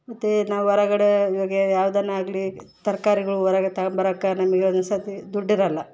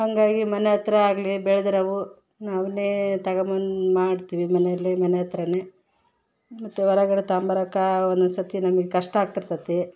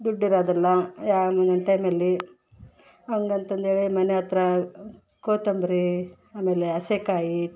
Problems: background sounds at intervals